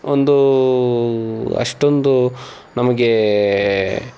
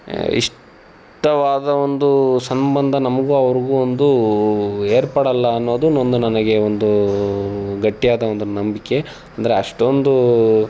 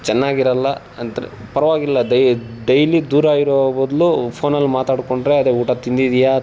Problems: none marked